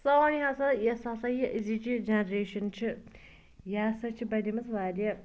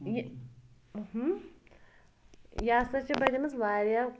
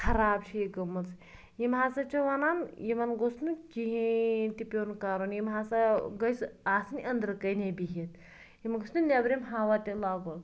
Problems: background sounds at intervals